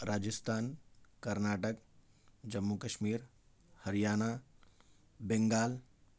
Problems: none marked